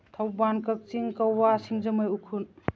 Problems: none marked